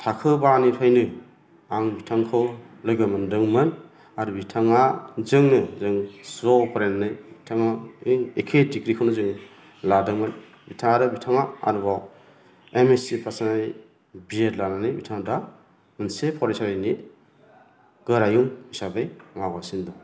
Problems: low volume